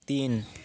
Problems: constant background noise